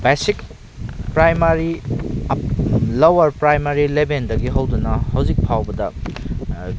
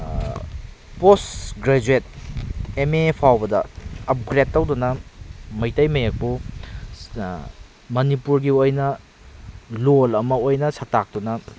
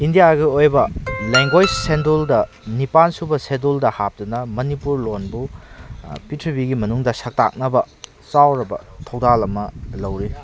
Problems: constant background noise